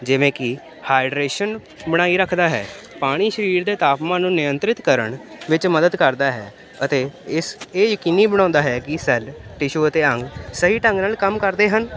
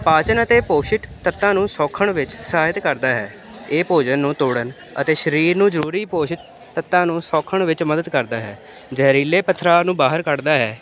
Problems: constant background noise